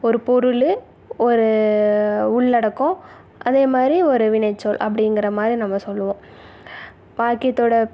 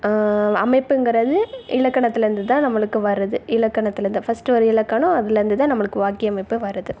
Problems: background sounds at intervals